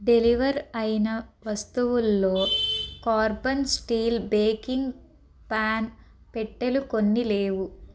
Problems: background sounds at intervals